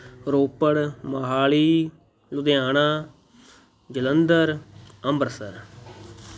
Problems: none marked